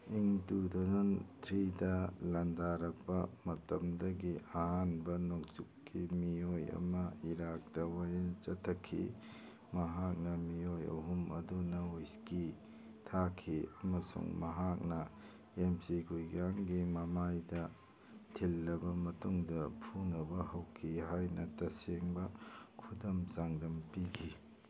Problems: background sounds at intervals, background conversations at intervals